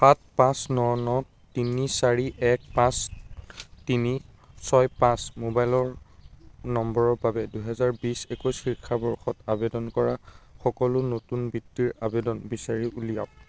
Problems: constant background noise